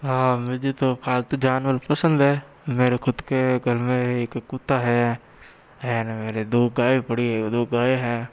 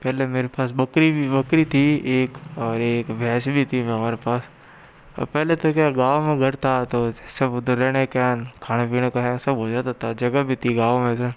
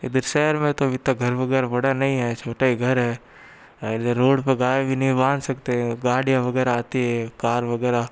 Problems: background sounds at intervals